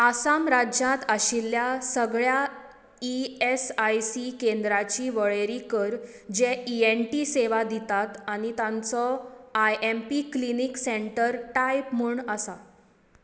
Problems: echo